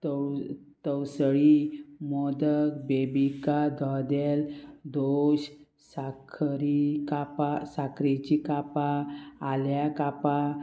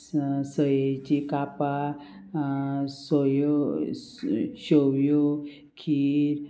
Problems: constant background noise